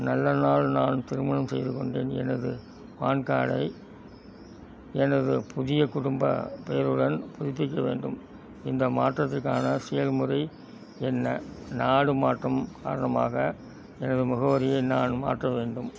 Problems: constant background noise